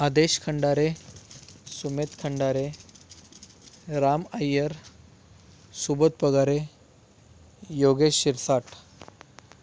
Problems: background sounds at intervals